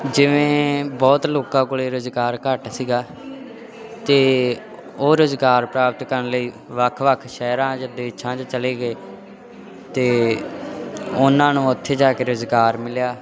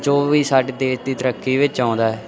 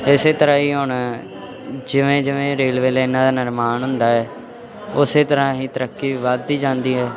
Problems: background conversations at intervals